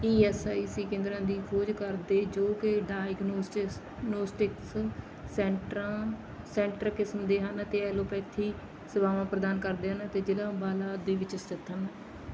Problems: background sounds at intervals